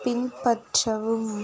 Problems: background sounds at intervals